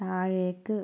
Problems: low volume